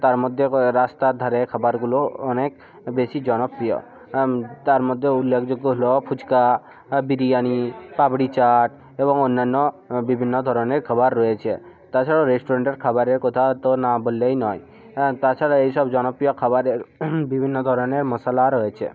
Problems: continuous background conversations